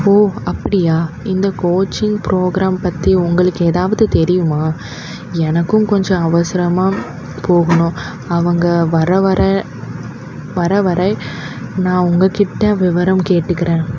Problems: constant background noise